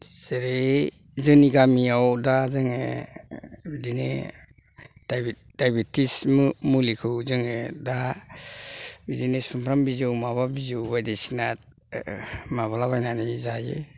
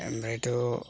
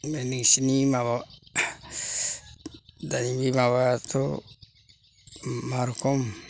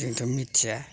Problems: none marked